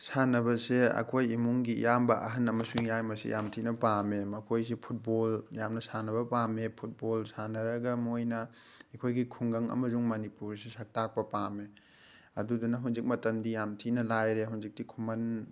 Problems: none marked